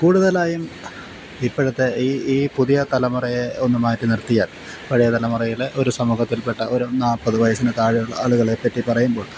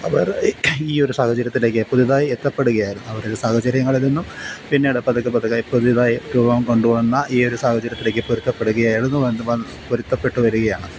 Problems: constant background noise